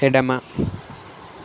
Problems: constant background noise